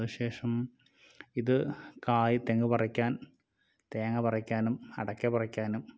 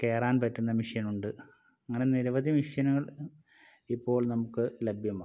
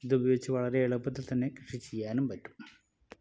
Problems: none marked